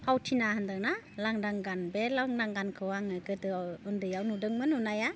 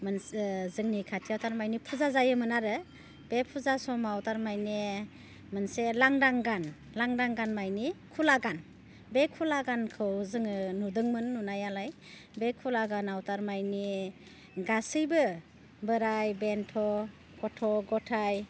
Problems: none marked